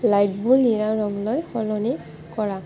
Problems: constant background noise, continuous background conversations